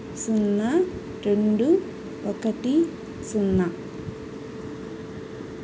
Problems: constant background noise